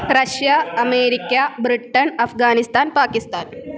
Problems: constant background noise